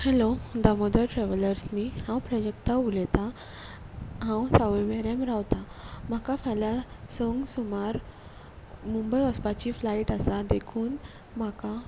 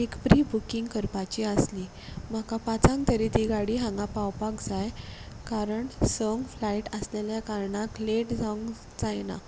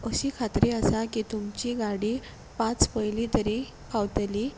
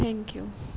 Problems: constant background noise